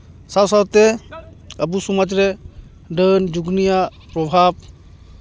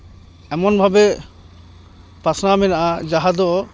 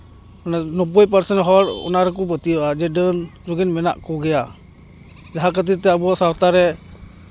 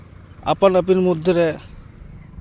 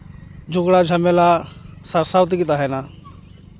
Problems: constant background noise, continuous background conversations